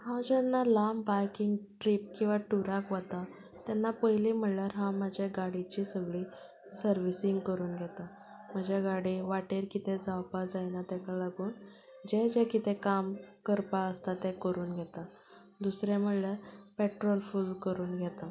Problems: background sounds at intervals, background conversations at intervals